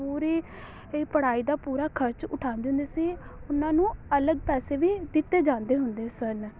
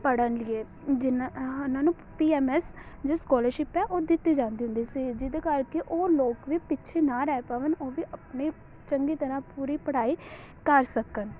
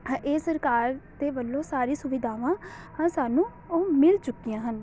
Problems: background sounds at intervals